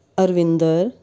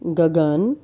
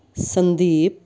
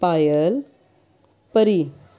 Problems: constant background noise